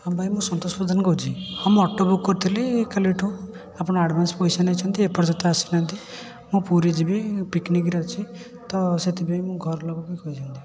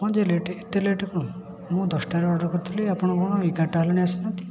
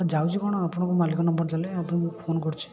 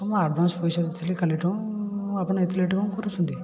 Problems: constant background noise, continuous background conversations